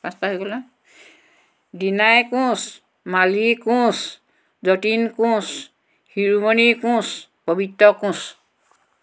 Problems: background conversations at intervals